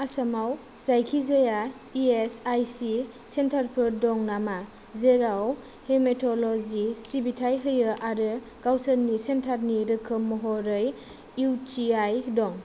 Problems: low volume